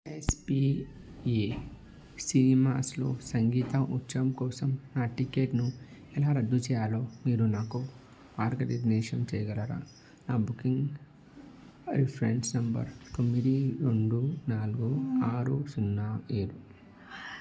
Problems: none marked